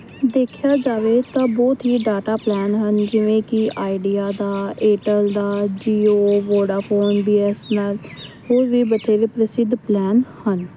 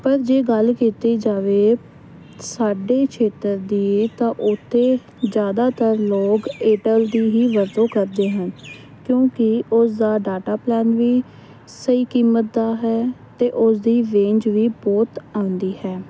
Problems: constant background noise